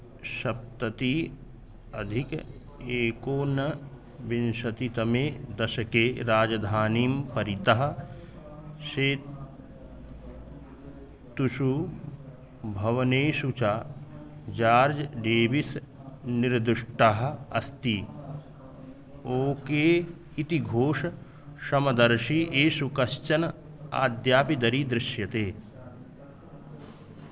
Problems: constant background noise